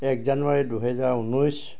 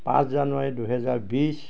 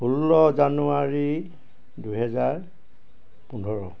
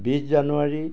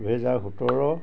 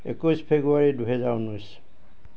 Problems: none marked